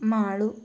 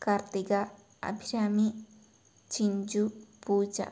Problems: low volume